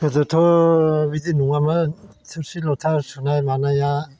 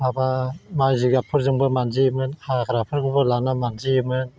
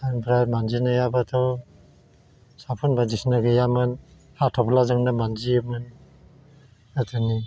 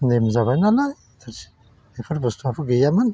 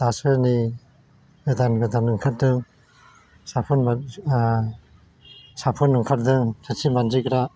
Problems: constant background noise